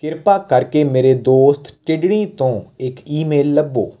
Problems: constant background noise